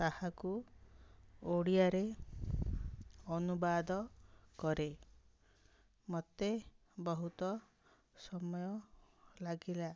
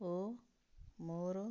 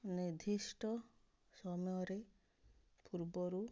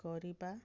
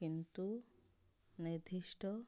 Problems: none marked